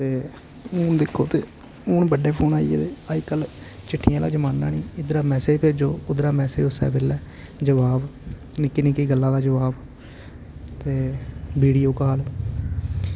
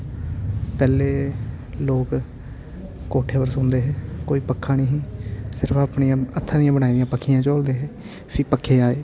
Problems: none marked